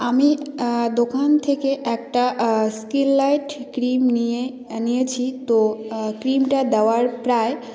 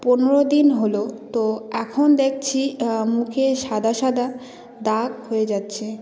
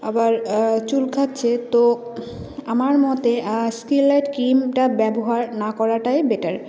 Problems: none marked